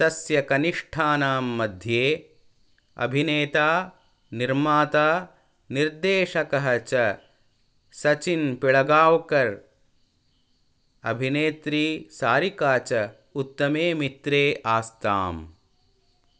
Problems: none marked